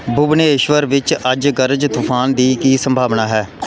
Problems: none marked